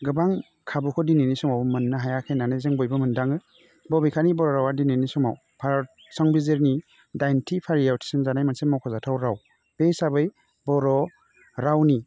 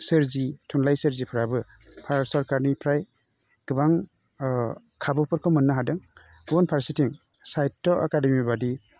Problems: constant background noise